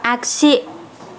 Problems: constant background noise